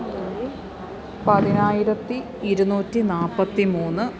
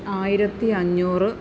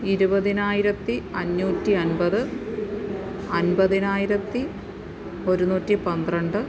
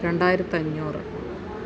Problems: constant background noise